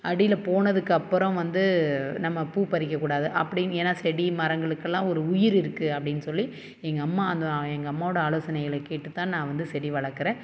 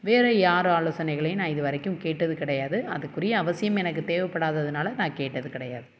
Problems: none marked